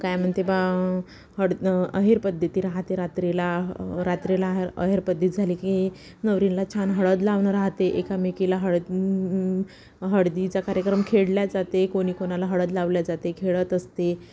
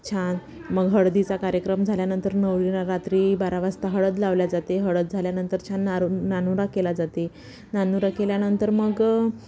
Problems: background sounds at intervals